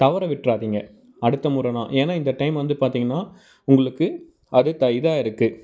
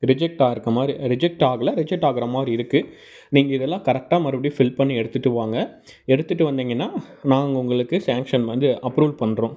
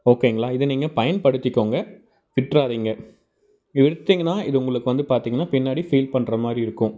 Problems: none marked